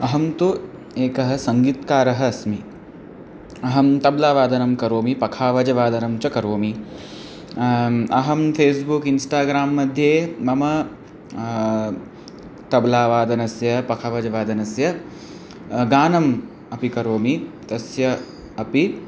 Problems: background conversations at intervals